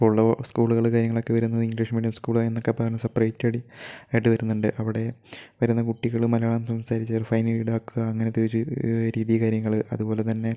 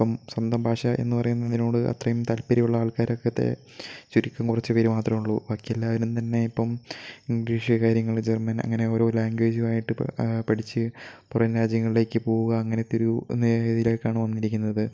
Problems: low volume